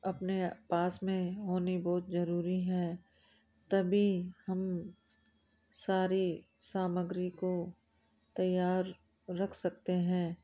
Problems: low volume